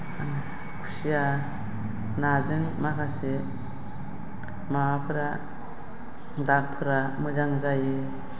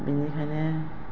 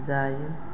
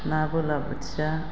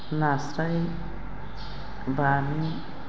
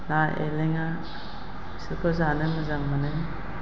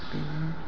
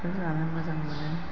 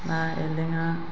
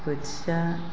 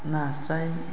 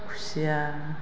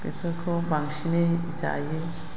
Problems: constant background noise